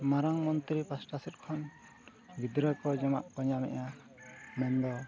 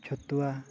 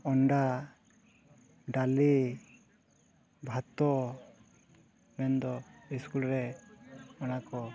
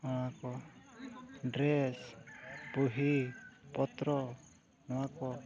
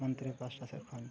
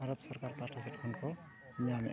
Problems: background sounds at intervals, continuous background conversations